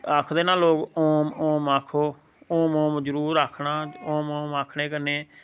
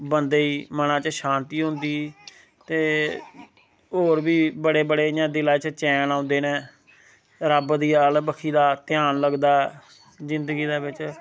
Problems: none marked